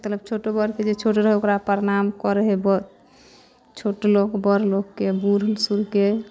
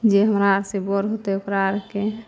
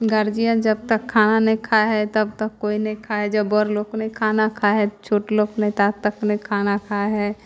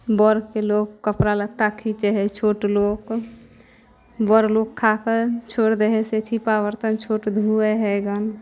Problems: none marked